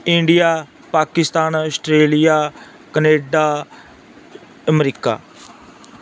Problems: background sounds at intervals